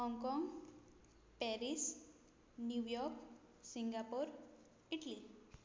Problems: low volume